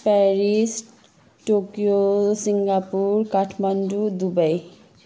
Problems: none marked